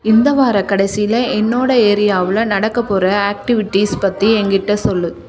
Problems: continuous background conversations